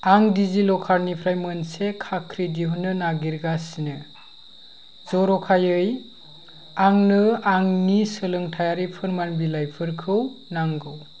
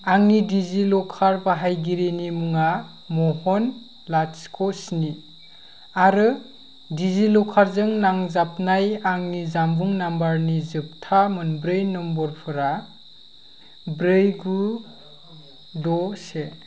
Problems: none marked